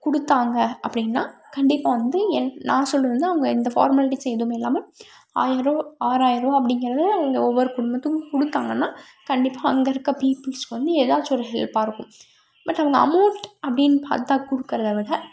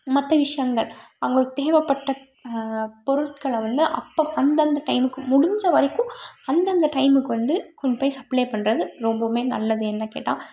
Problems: background sounds at intervals